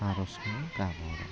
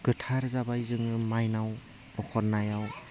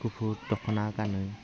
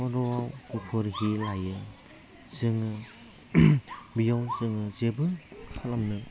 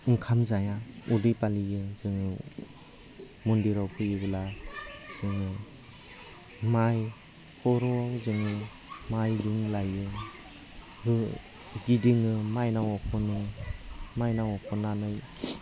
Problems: low volume